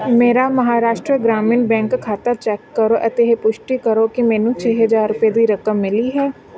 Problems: background conversations at intervals